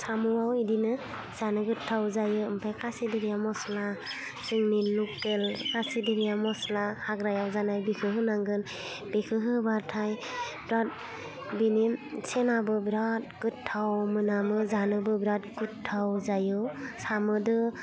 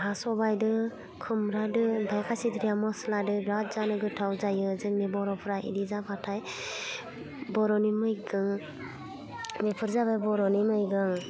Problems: constant background noise